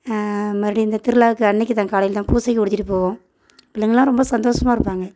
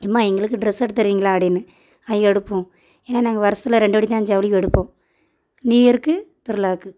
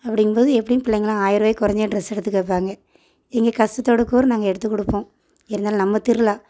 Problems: background sounds at intervals